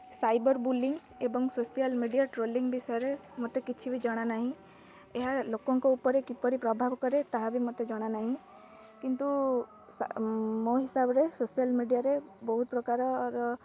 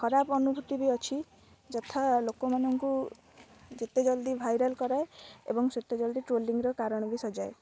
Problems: none marked